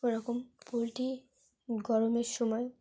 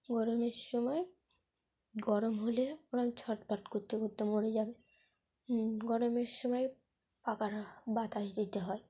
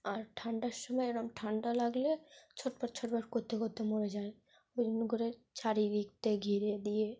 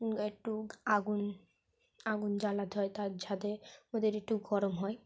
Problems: none marked